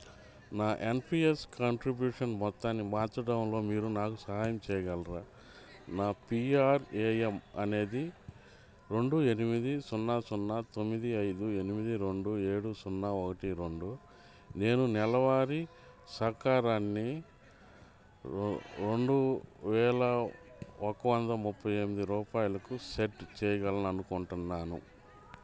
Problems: background conversations at intervals